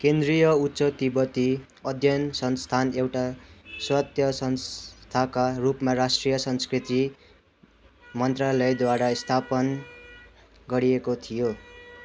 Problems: constant background noise, continuous background conversations